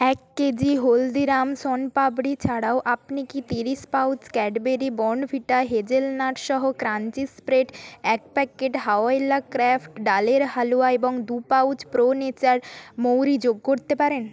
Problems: constant background noise